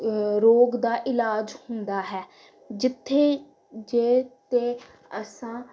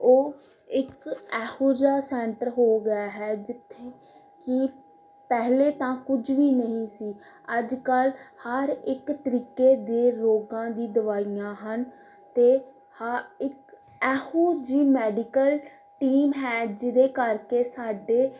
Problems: background conversations at intervals